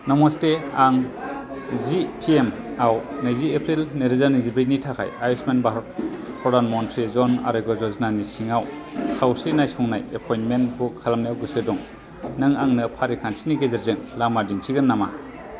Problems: constant background noise